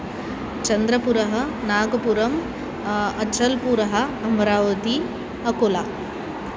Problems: none marked